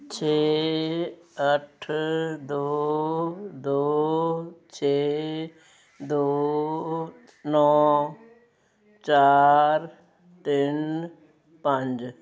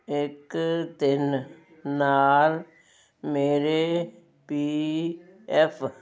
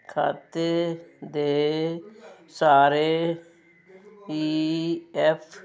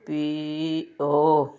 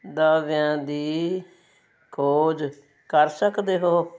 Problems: constant background noise